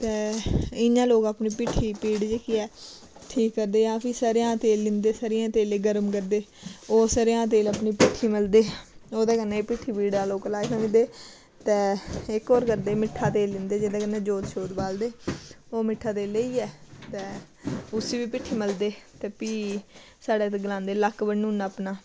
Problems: background sounds at intervals